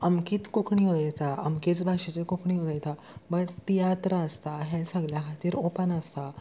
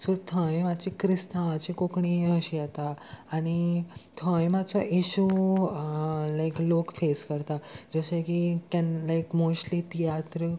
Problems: constant background noise